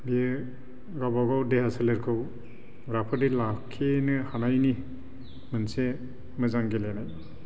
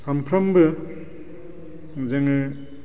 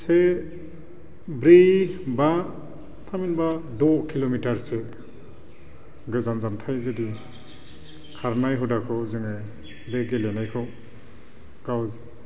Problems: low volume